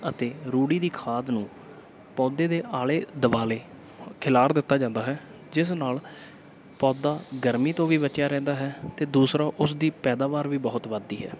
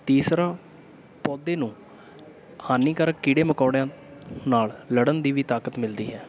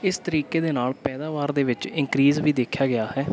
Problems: background sounds at intervals, background conversations at intervals